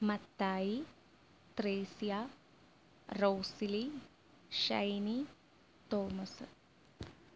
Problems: low volume